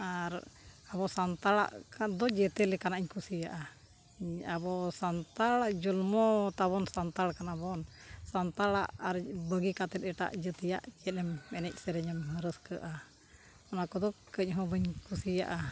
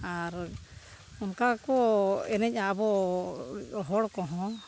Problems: none marked